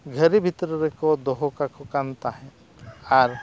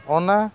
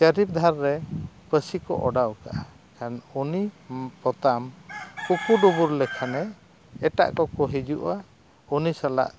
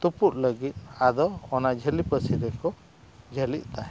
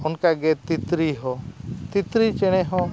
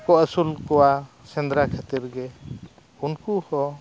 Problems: none marked